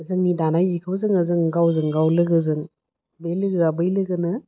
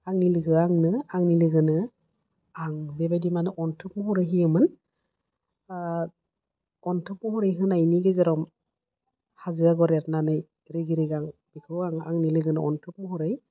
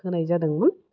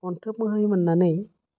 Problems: low volume